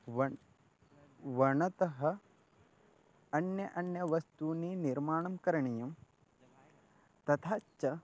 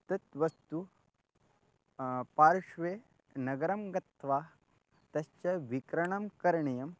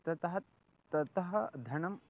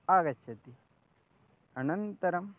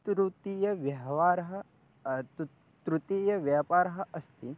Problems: none marked